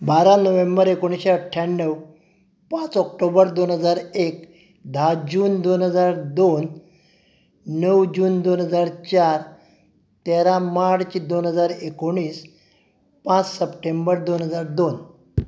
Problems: none marked